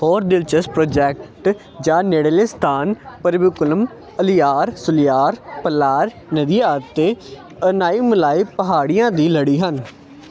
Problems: constant background noise